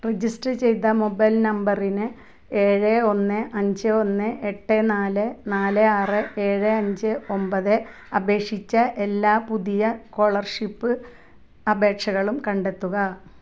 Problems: background sounds at intervals